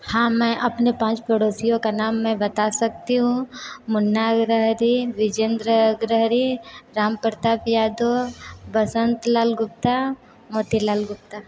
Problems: constant background noise, background conversations at intervals